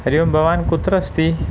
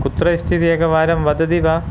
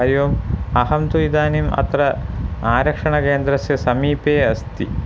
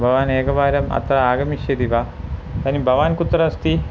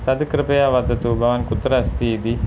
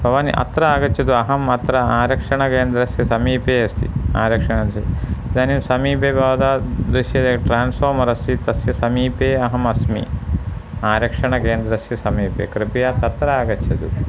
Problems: constant background noise